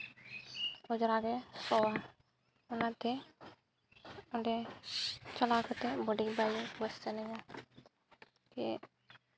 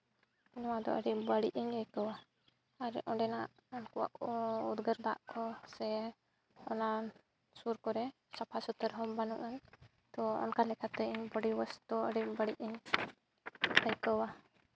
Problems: background sounds at intervals